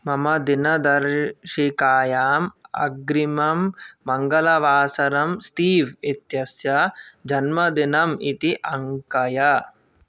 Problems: none marked